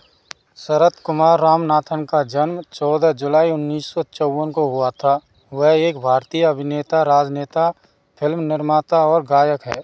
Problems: background sounds at intervals